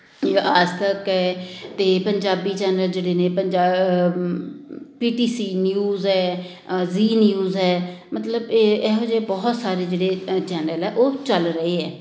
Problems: none marked